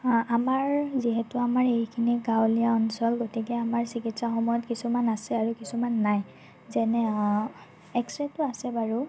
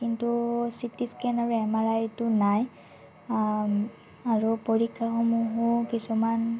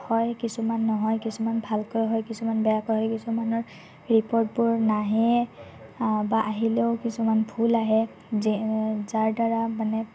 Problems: none marked